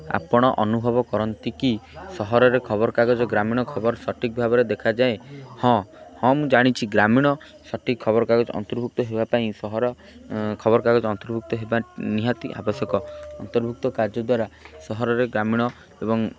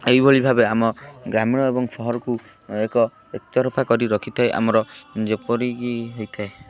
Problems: constant background noise